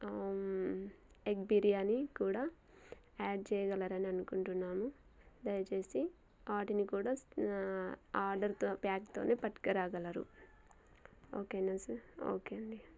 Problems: none marked